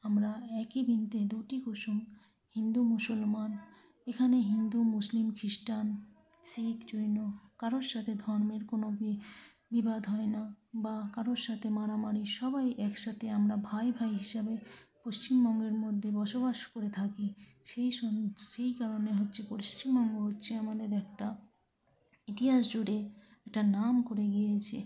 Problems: background sounds at intervals, continuous background conversations, low volume